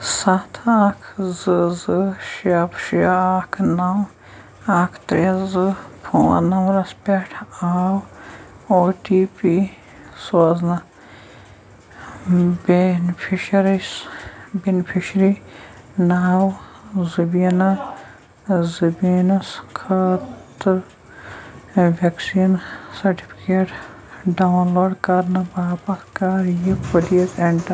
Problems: constant background noise, background conversations at intervals